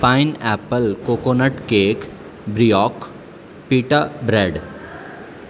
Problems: constant background noise